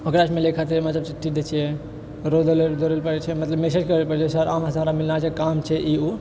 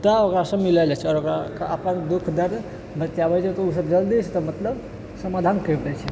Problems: none marked